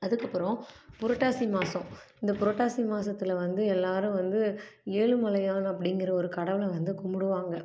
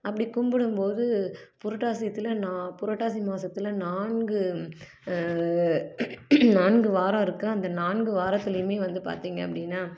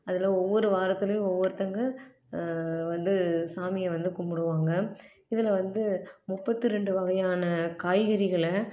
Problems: none marked